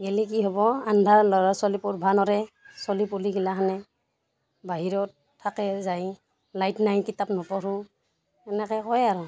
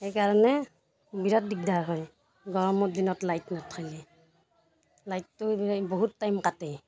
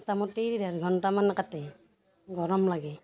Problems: background sounds at intervals, background conversations at intervals